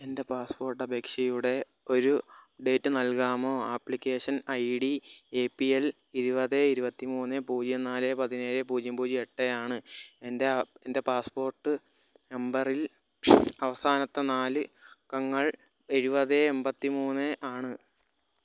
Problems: none marked